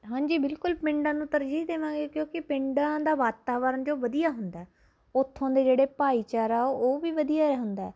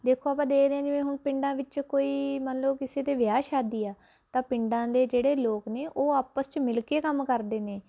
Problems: constant background noise